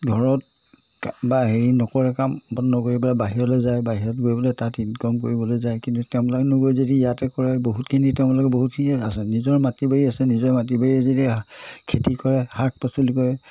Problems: none marked